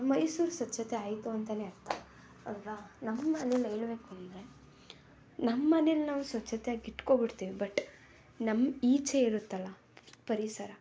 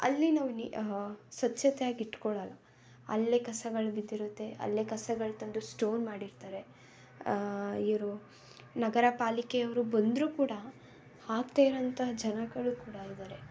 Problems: background sounds at intervals